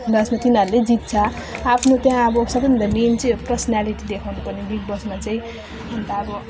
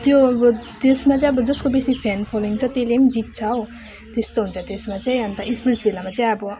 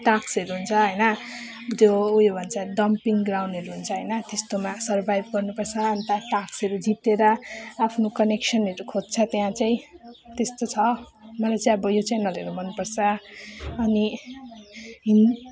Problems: none marked